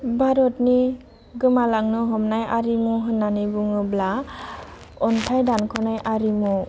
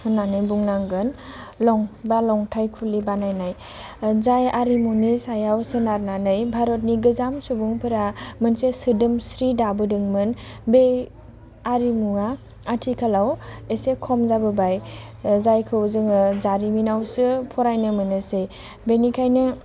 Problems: constant background noise